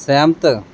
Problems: none marked